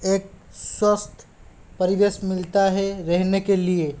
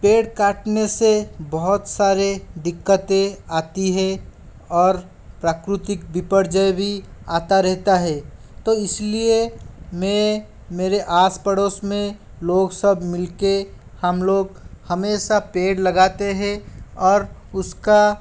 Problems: constant background noise